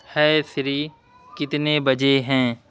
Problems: constant background noise